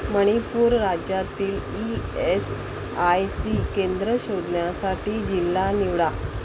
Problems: constant background noise